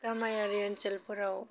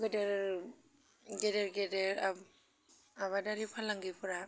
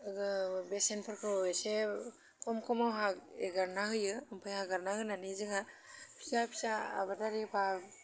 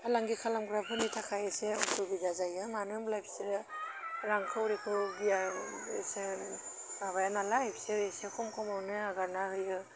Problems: none marked